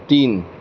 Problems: none marked